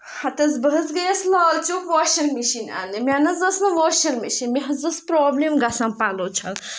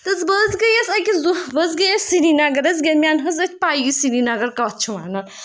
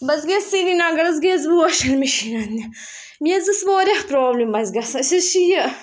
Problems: background sounds at intervals